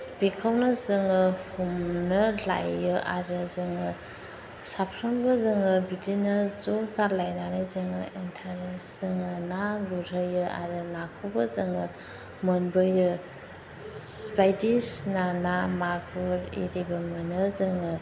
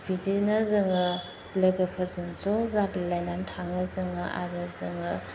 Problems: constant background noise